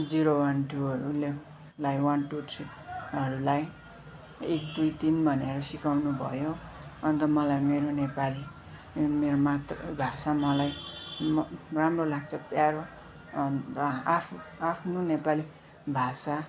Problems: constant background noise, continuous background conversations